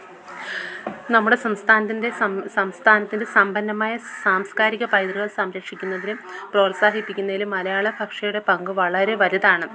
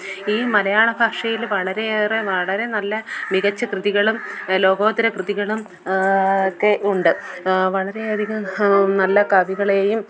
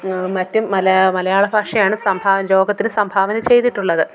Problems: background sounds at intervals